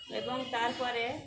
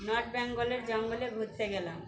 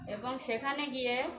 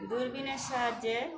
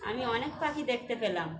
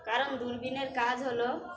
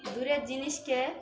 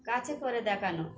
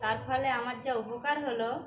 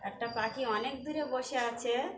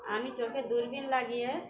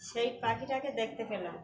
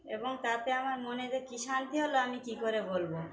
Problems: none marked